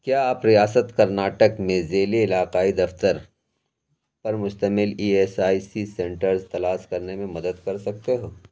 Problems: none marked